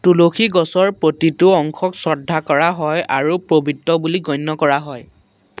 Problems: constant background noise